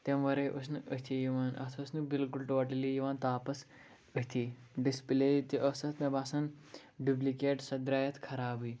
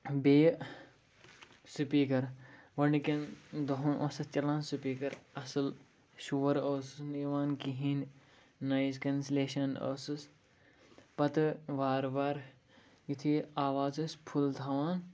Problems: background sounds at intervals